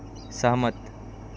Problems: constant background noise